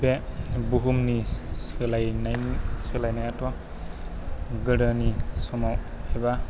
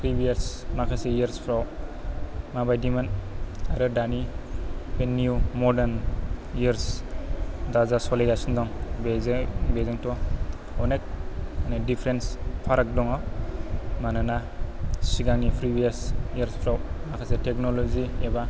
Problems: low volume